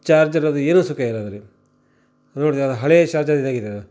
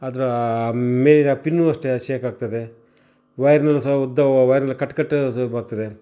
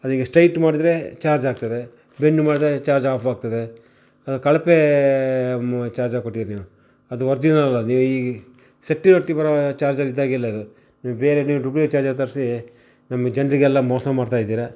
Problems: none marked